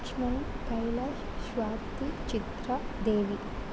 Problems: low volume